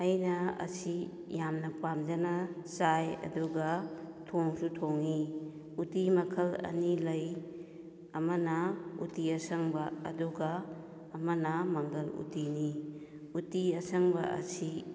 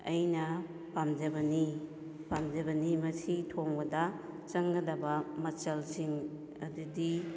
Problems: echo